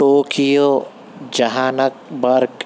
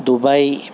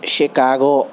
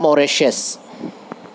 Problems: constant background noise